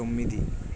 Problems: low volume